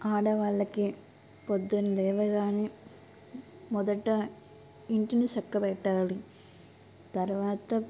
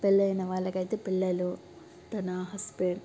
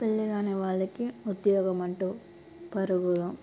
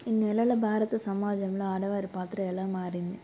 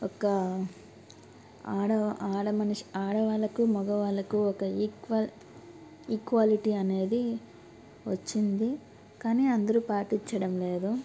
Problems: constant background noise